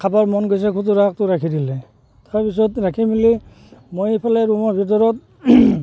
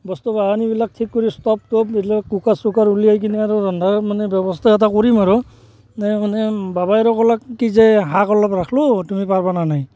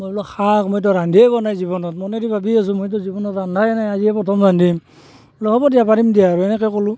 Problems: constant background noise